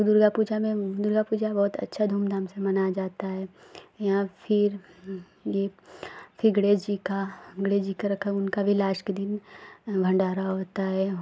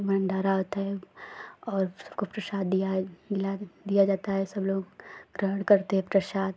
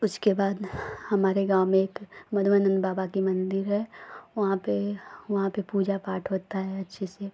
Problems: none marked